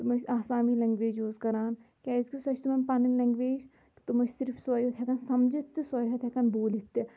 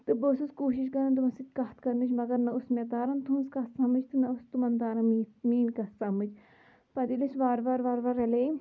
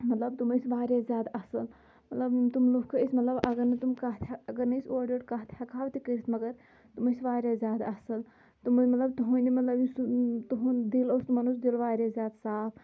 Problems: low volume